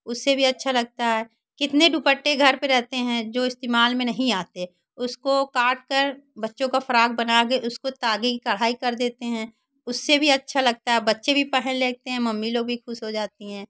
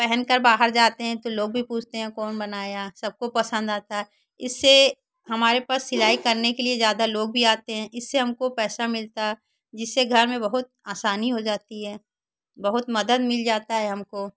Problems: none marked